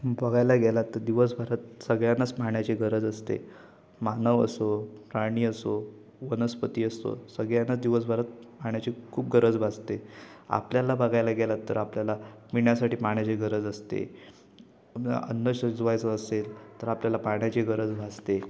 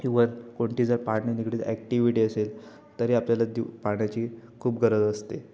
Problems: constant background noise, continuous background conversations